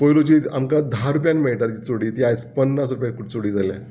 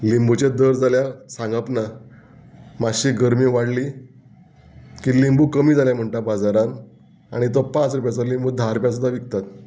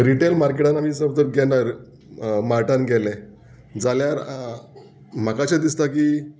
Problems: background conversations at intervals